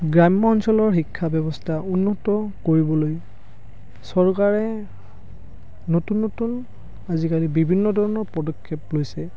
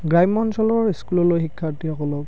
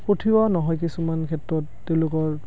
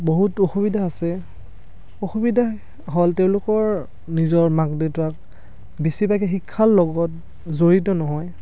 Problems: background conversations at intervals